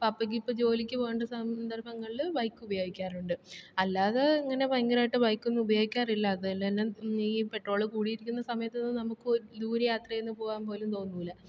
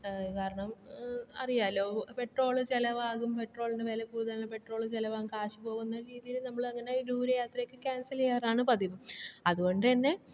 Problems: low volume